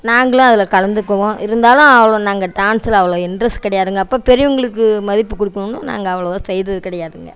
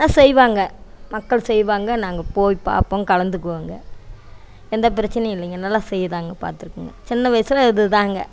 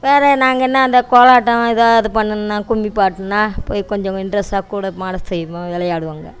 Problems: background sounds at intervals, background conversations at intervals